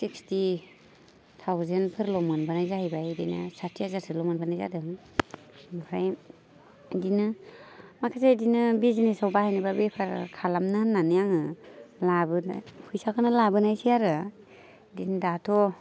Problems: constant background noise